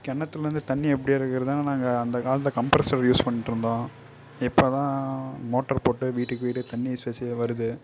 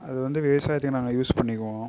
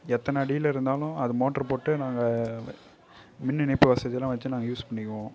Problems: low volume